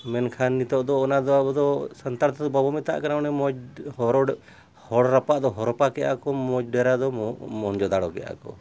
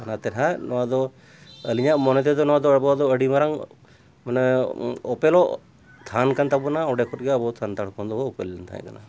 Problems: background sounds at intervals